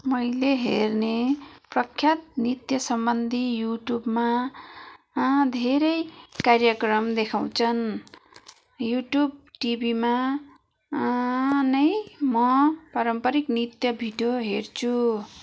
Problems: background sounds at intervals, background conversations at intervals